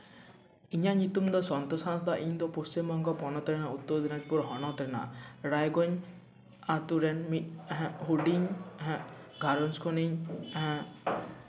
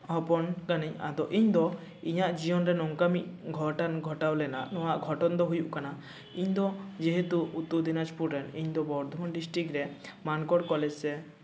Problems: echo